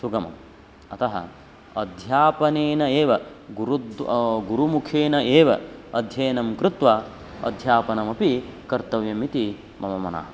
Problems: constant background noise